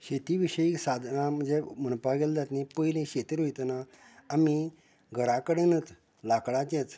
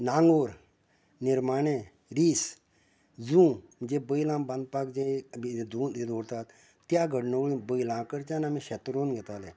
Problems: none marked